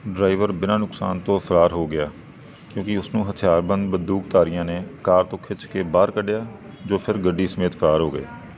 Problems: background sounds at intervals